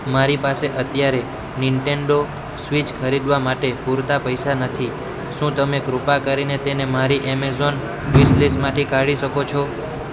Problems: constant background noise